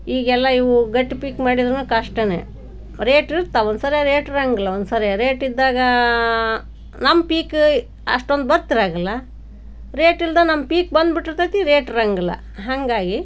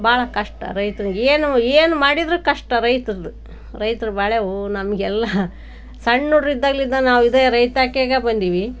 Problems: none marked